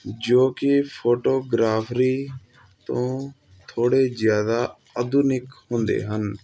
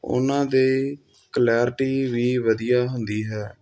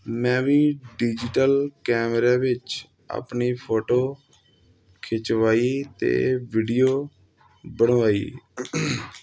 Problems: none marked